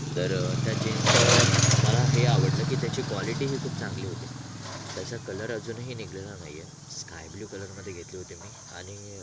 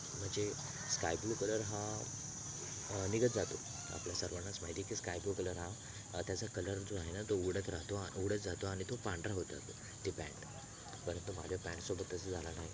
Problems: constant background noise, background conversations at intervals